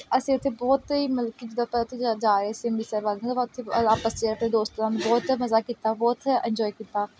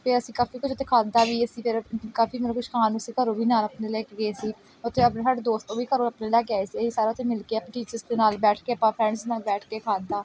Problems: background sounds at intervals